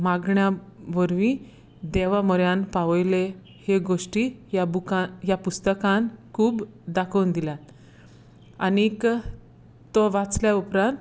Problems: background sounds at intervals